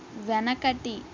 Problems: constant background noise